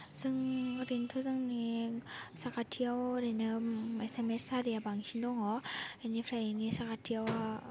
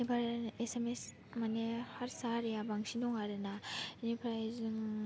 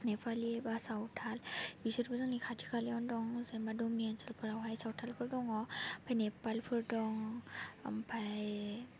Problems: constant background noise